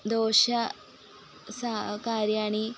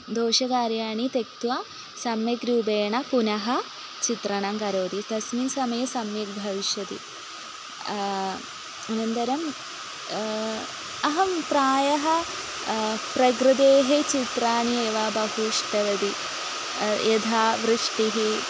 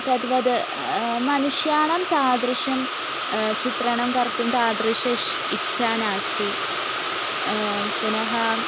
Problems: constant background noise